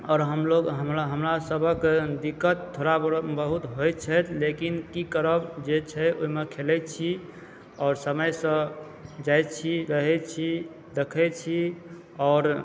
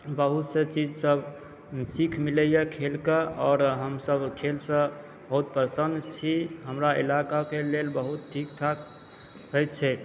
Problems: background sounds at intervals